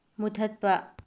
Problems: low volume